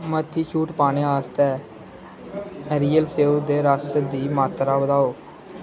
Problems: constant background noise